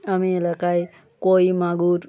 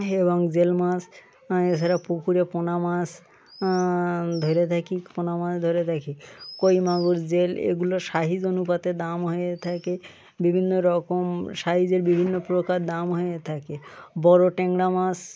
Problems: constant background noise